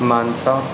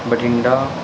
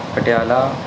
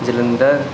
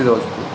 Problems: none marked